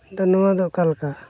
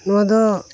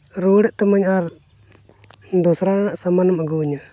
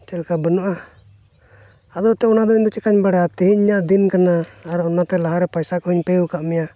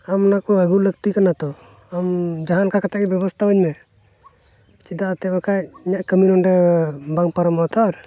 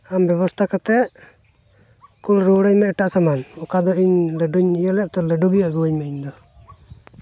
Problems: none marked